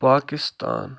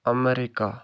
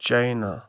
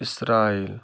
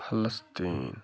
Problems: none marked